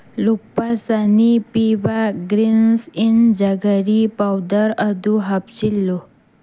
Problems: constant background noise